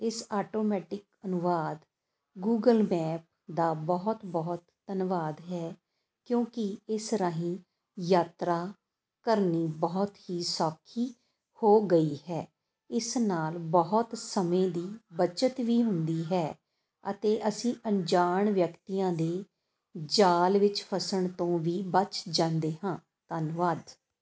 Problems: constant background noise